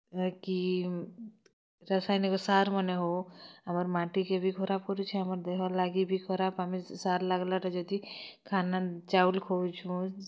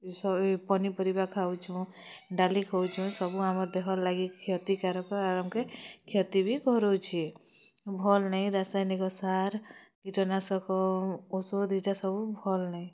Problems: constant background noise